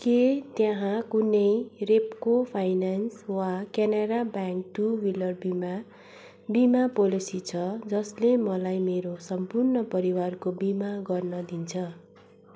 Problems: constant background noise